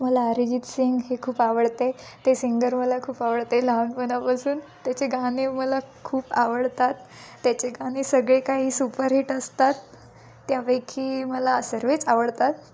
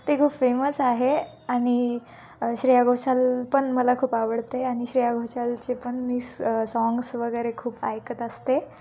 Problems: none marked